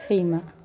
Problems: background sounds at intervals